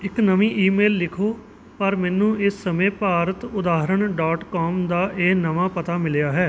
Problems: background sounds at intervals